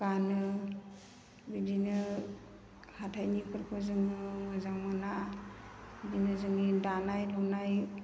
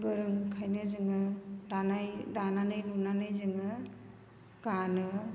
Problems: low volume